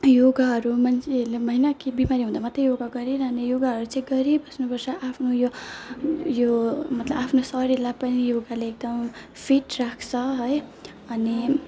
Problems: none marked